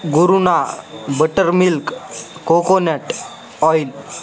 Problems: constant background noise, continuous background conversations